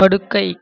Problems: none marked